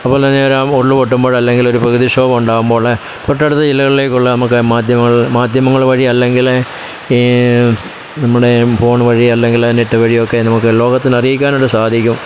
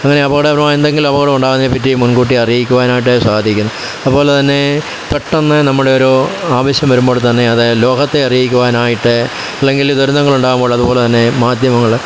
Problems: constant background noise